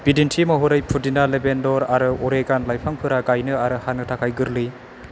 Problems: none marked